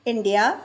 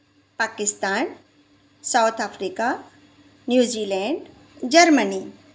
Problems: constant background noise, echo